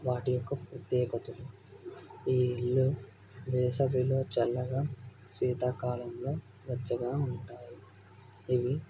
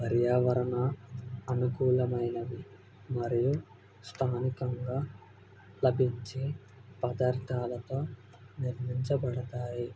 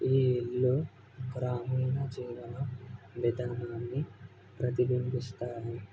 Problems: none marked